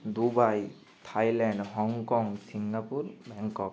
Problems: constant background noise